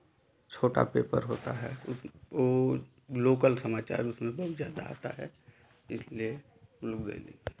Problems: none marked